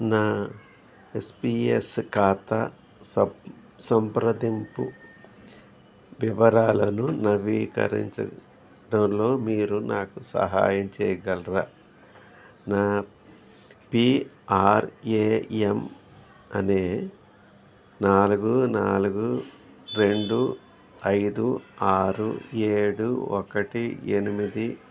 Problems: none marked